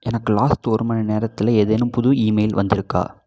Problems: none marked